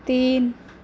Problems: none marked